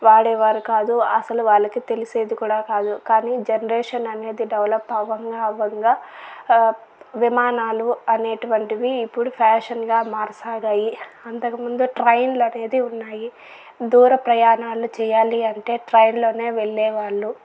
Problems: none marked